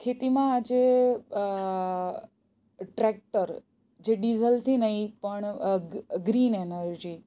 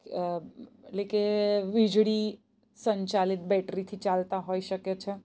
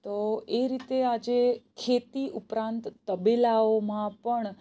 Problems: none marked